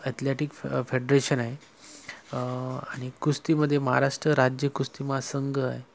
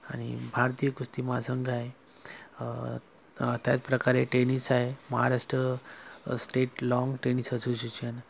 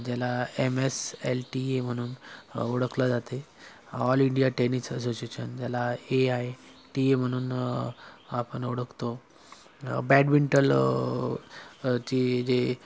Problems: background sounds at intervals